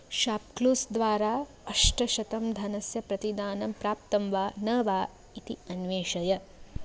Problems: none marked